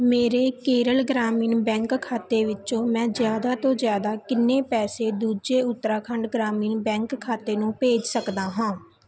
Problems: background conversations at intervals